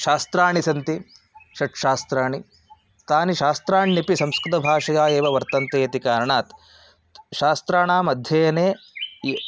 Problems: background sounds at intervals